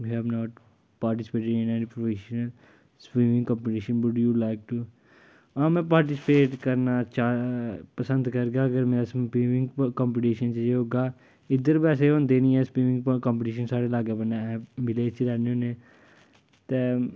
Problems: none marked